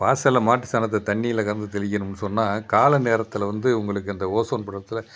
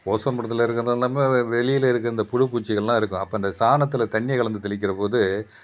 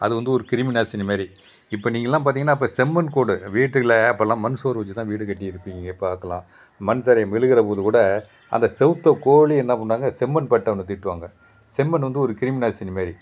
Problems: background sounds at intervals